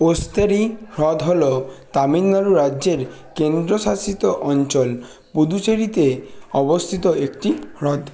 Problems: constant background noise, continuous background conversations